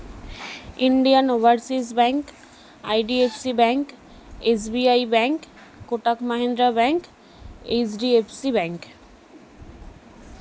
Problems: none marked